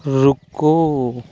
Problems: constant background noise